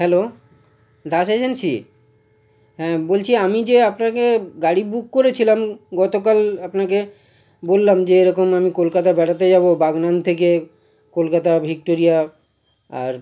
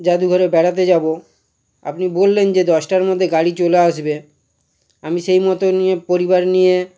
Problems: none marked